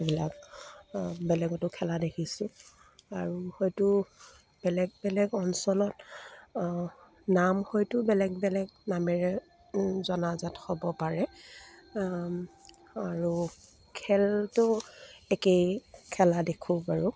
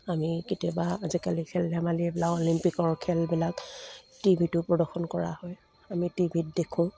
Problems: none marked